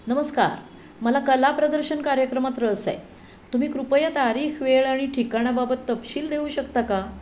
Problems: none marked